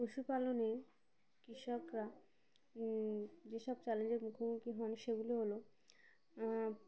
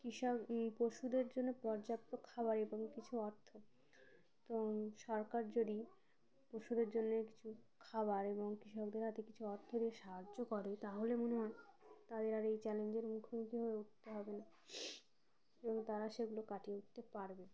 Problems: low volume